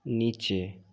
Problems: none marked